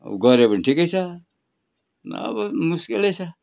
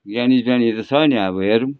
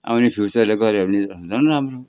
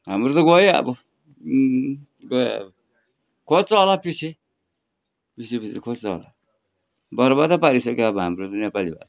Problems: background sounds at intervals